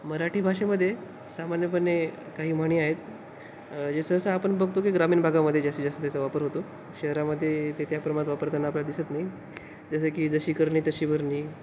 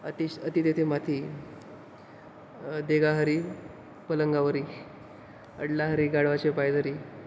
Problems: constant background noise